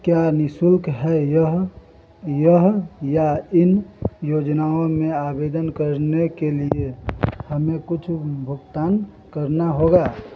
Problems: constant background noise